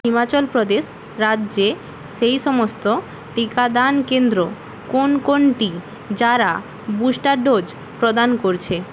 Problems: constant background noise